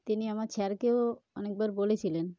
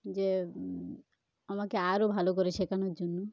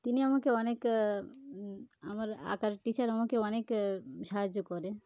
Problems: background sounds at intervals